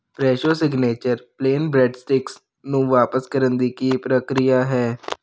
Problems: constant background noise